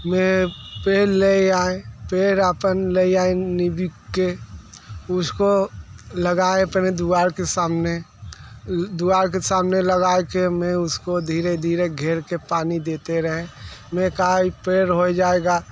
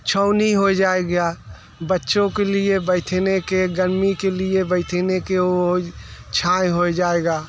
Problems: background sounds at intervals